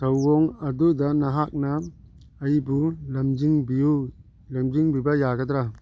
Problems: background sounds at intervals, background conversations at intervals